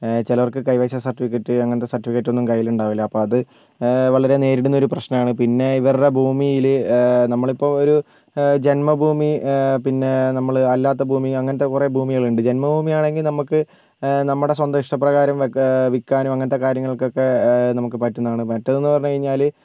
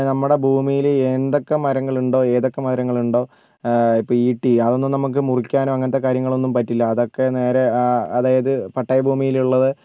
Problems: none marked